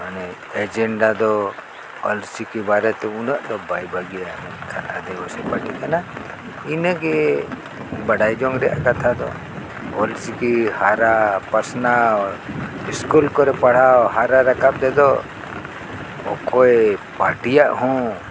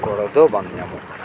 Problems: constant background noise